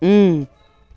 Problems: background sounds at intervals